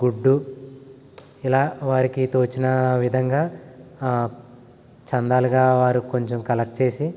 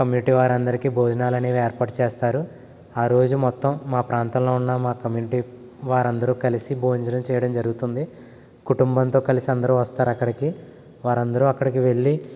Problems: constant background noise